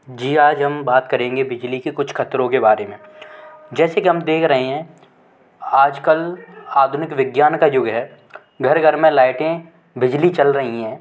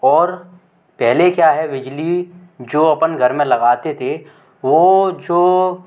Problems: none marked